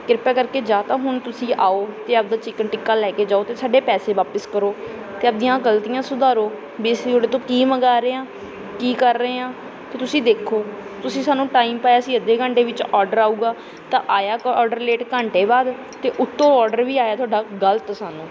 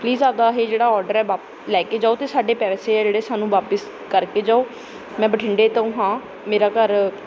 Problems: none marked